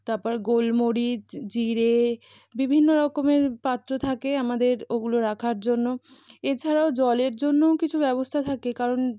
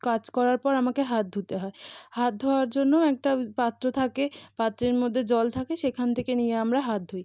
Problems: background sounds at intervals